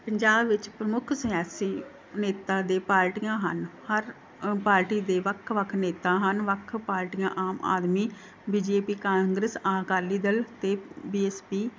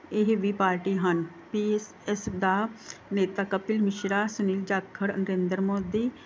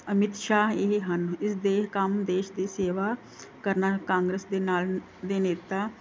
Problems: background sounds at intervals